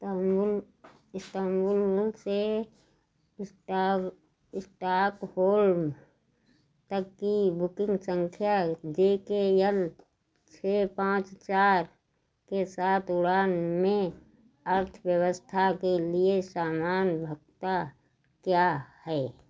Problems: none marked